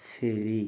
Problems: none marked